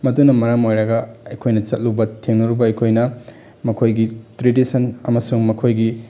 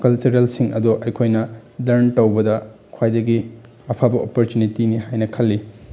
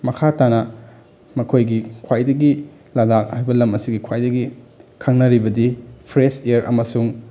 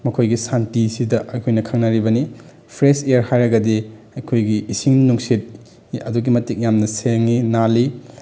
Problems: none marked